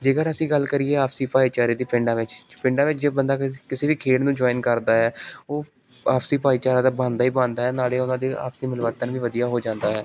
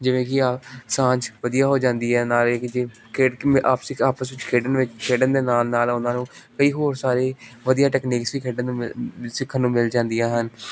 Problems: none marked